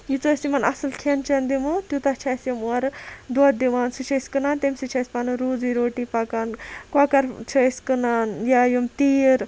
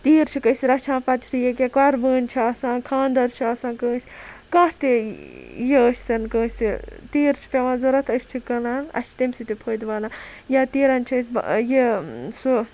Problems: none marked